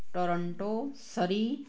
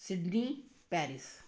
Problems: background sounds at intervals